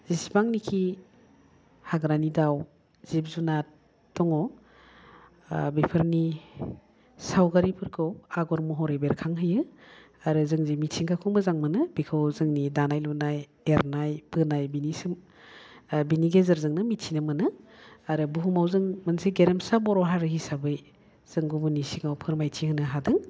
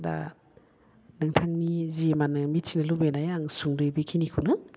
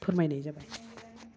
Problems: none marked